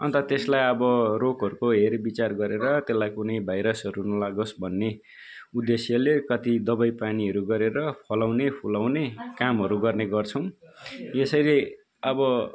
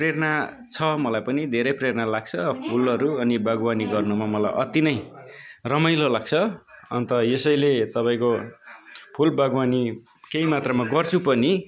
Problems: continuous background conversations